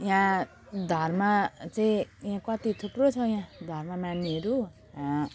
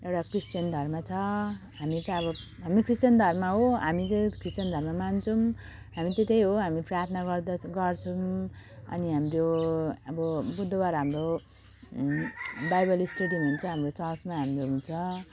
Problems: none marked